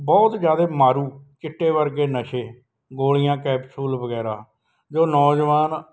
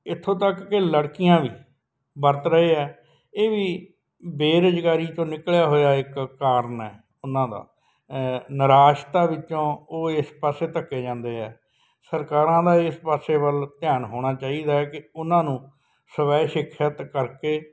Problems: none marked